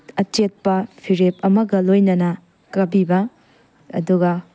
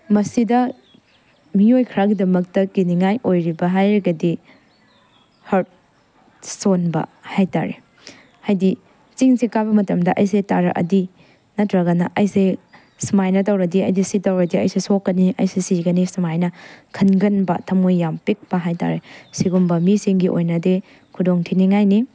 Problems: none marked